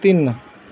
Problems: background sounds at intervals